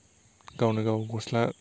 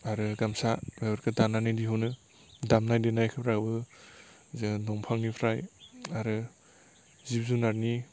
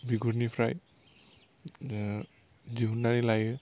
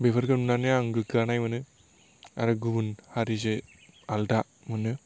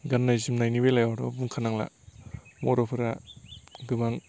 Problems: none marked